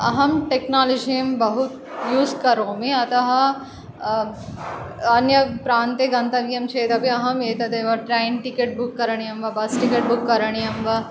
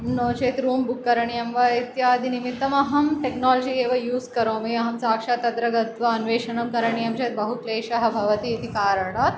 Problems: none marked